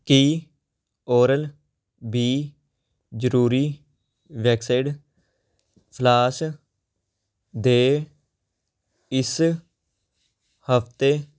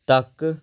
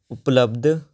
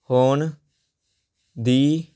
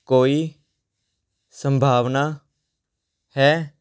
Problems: constant background noise